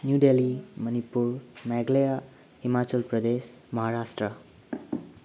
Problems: constant background noise